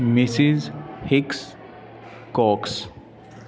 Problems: constant background noise